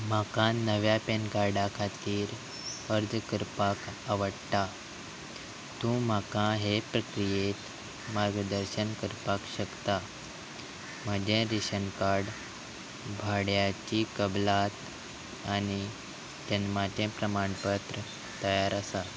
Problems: constant background noise